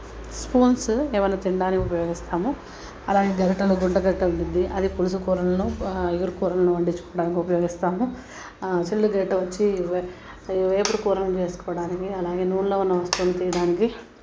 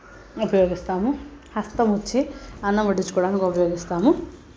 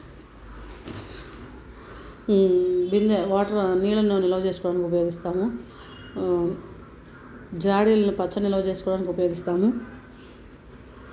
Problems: constant background noise